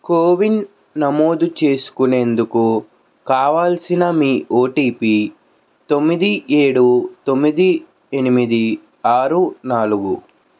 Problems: constant background noise